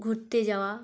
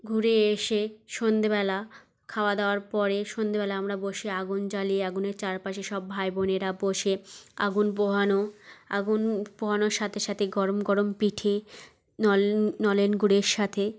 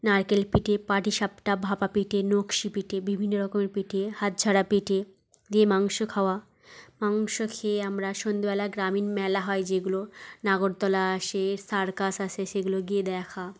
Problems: background sounds at intervals, background conversations at intervals